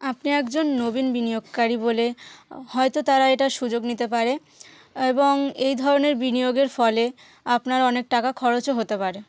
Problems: constant background noise